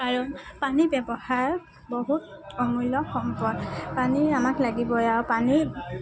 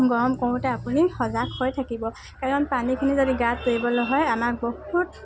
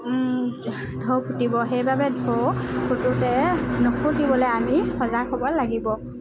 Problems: none marked